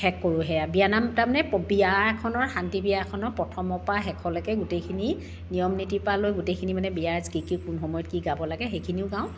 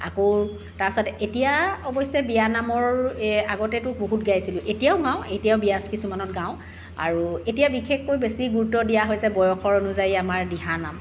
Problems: constant background noise